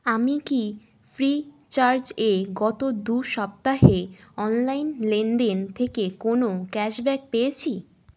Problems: constant background noise